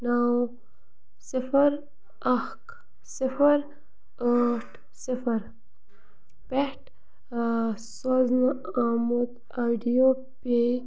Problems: constant background noise